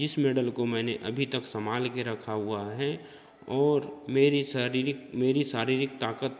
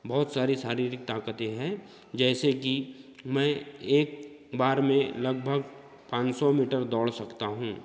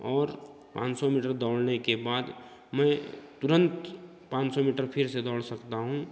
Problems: constant background noise, background conversations at intervals